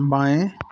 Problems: none marked